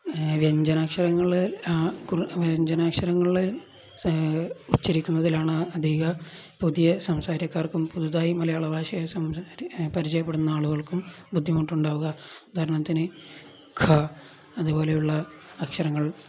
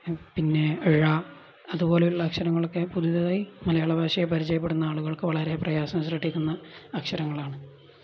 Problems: none marked